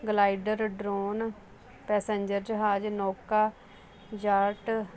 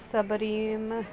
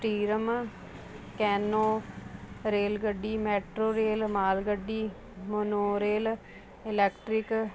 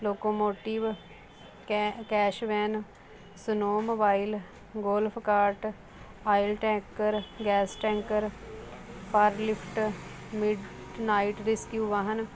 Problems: constant background noise, background conversations at intervals